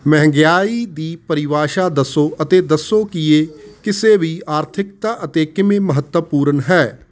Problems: constant background noise